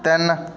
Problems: background sounds at intervals